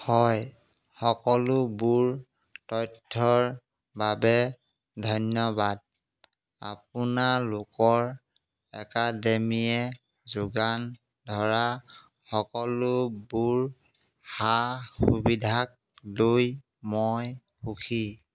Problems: background sounds at intervals